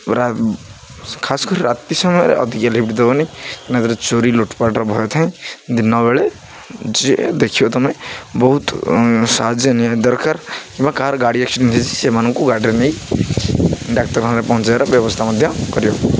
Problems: constant background noise